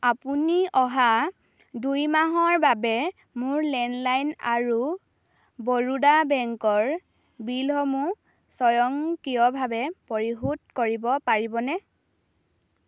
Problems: none marked